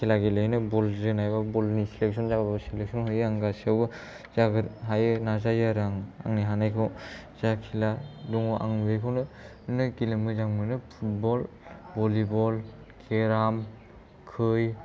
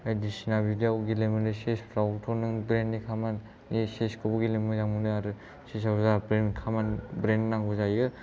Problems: low volume